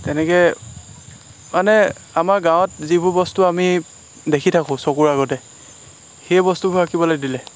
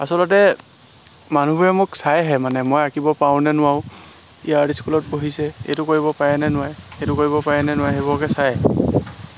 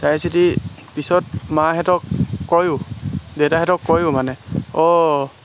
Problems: constant background noise